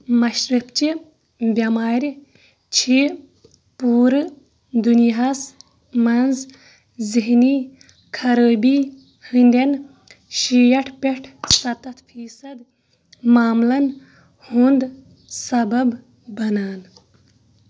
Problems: none marked